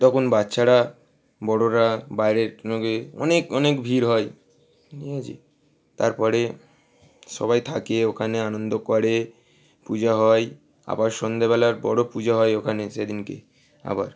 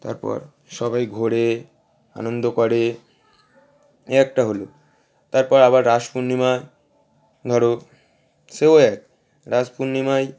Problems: constant background noise